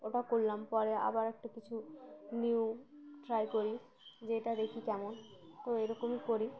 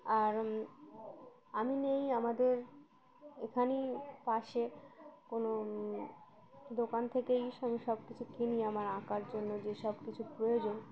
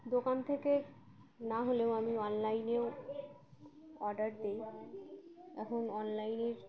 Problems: constant background noise, background conversations at intervals